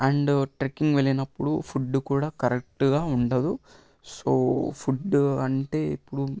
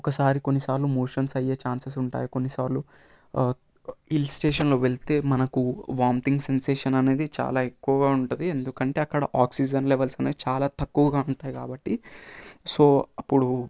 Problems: constant background noise